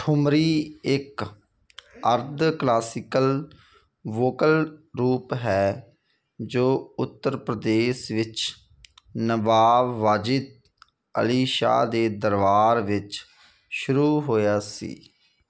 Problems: none marked